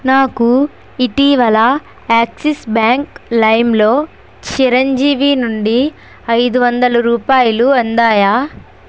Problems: constant background noise